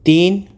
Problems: none marked